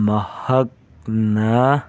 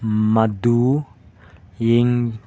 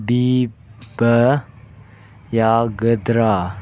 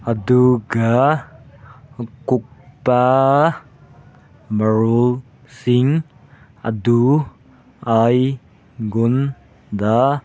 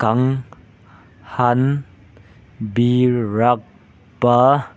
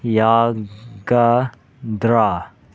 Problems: none marked